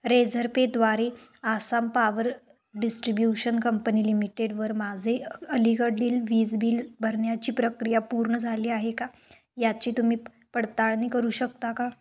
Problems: none marked